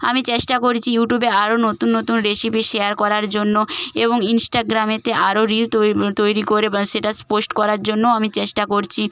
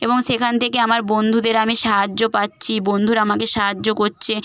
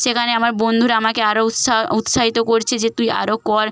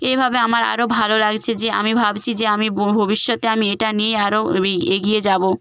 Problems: background sounds at intervals